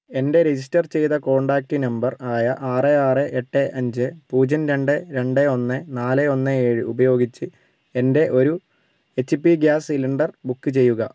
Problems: none marked